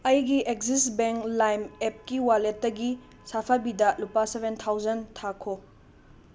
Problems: constant background noise